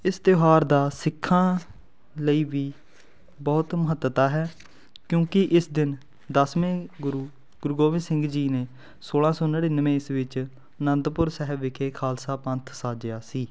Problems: background sounds at intervals